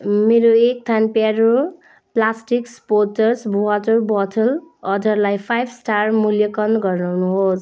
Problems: background conversations at intervals